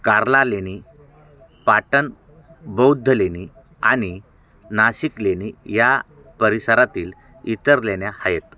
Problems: constant background noise